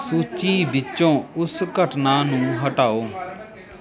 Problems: continuous background conversations